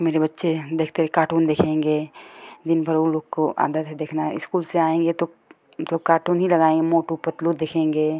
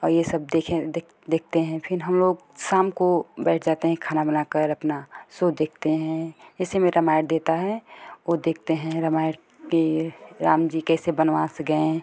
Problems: none marked